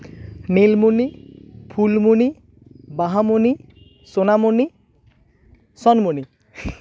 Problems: constant background noise, background conversations at intervals